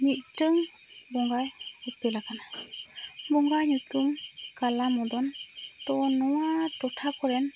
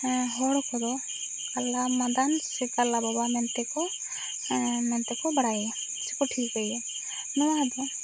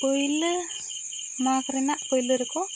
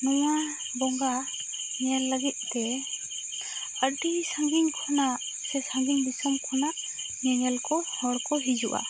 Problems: constant background noise